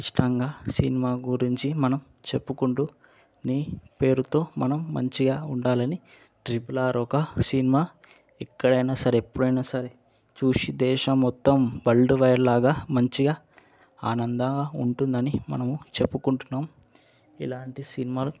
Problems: constant background noise